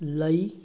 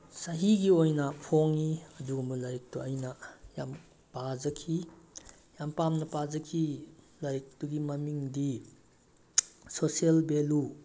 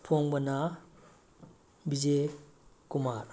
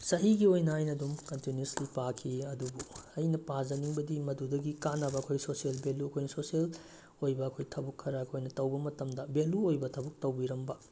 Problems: none marked